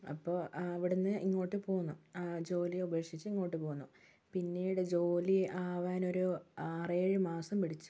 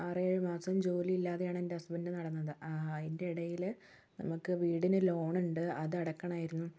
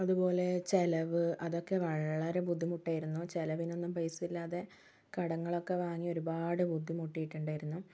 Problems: low volume